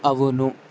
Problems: constant background noise